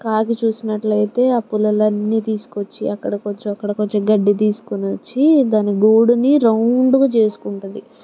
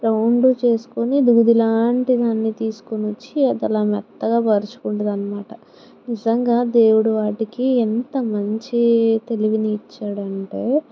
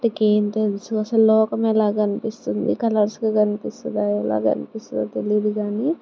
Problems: none marked